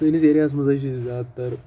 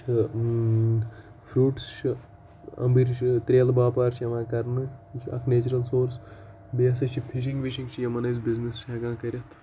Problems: constant background noise